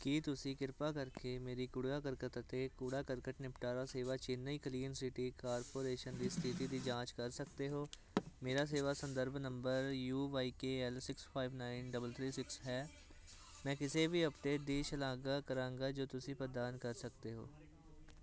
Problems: constant background noise